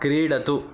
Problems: constant background noise